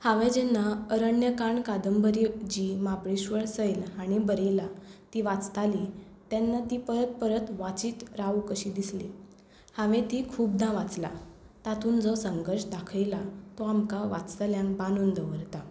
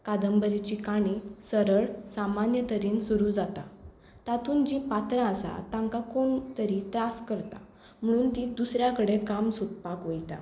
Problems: none marked